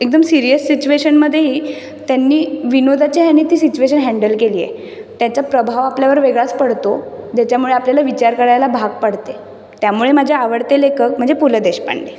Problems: none marked